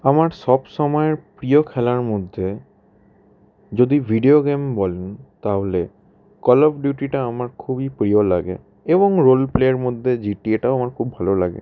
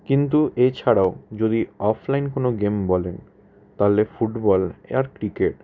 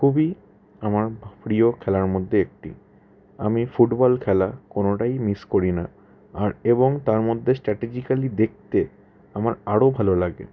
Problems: constant background noise, background conversations at intervals